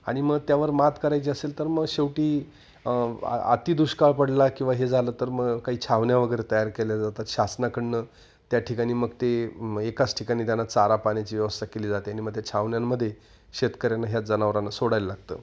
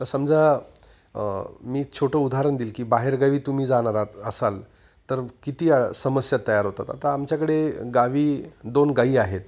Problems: background sounds at intervals